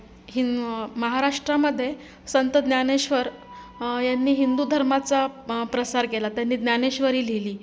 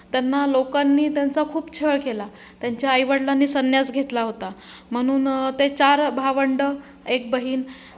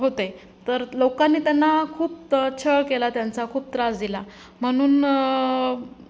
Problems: none marked